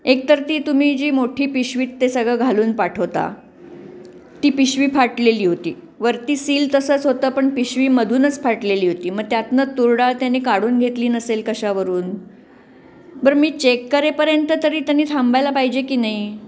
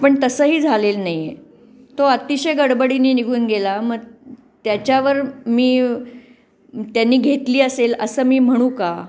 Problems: constant background noise